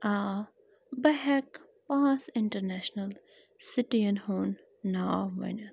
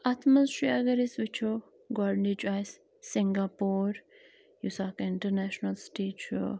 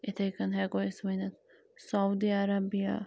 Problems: constant background noise